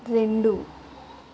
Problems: none marked